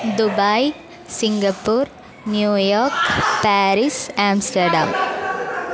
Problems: constant background noise